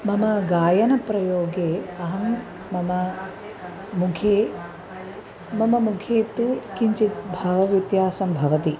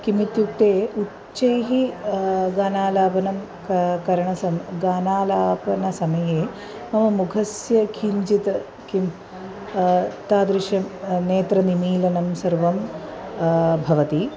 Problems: constant background noise